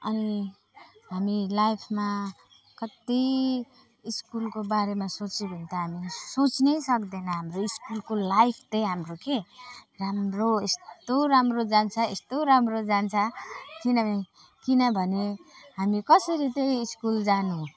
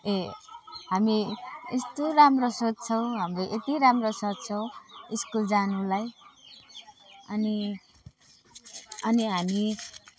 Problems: constant background noise, background conversations at intervals, low volume